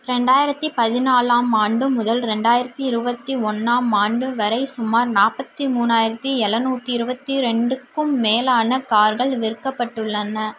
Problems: none marked